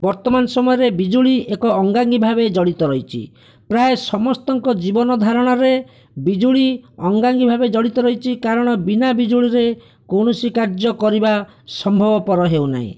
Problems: none marked